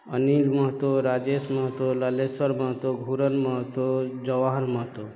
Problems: background sounds at intervals, background conversations at intervals